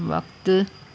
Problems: constant background noise